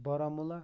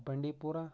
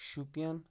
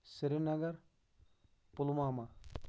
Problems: low volume